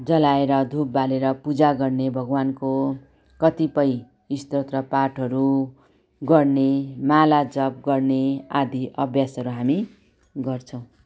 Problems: background sounds at intervals